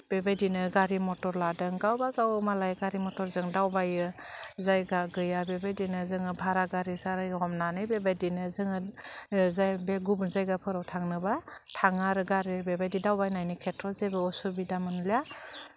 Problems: low volume